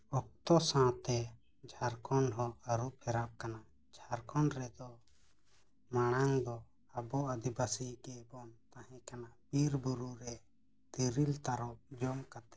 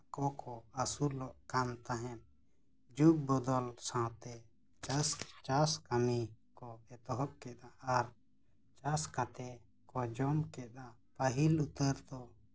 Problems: constant background noise, low volume